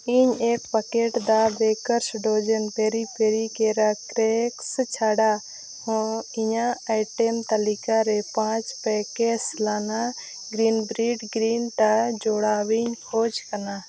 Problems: constant background noise